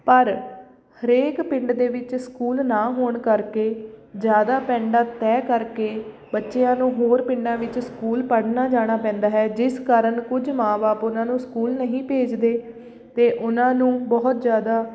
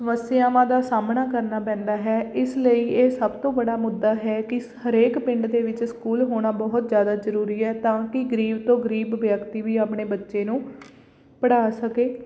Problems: background sounds at intervals